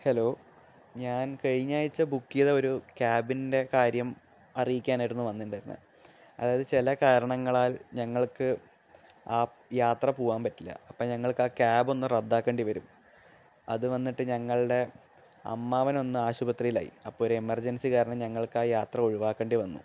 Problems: background sounds at intervals